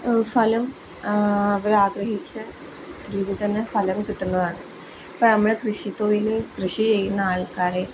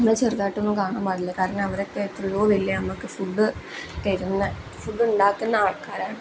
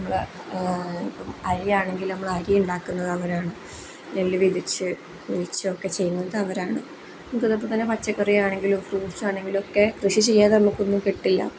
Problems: none marked